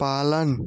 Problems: none marked